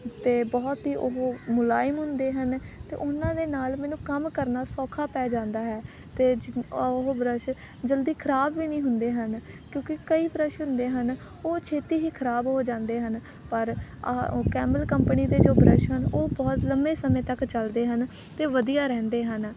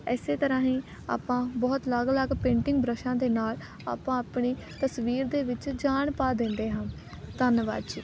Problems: constant background noise